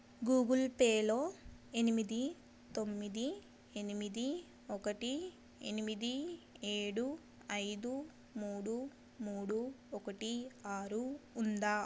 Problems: none marked